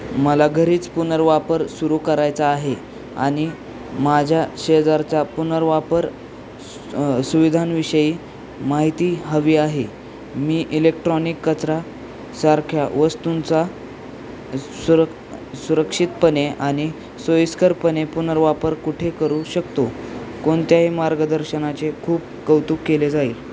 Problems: none marked